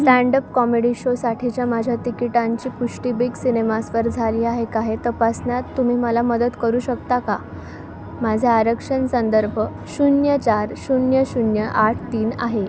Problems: none marked